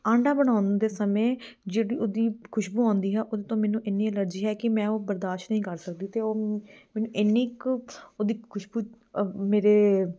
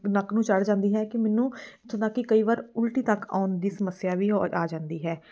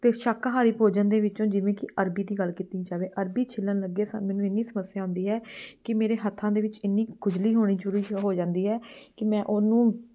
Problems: background sounds at intervals